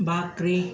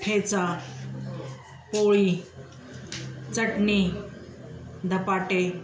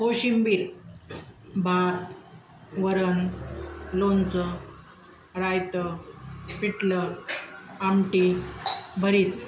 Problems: background sounds at intervals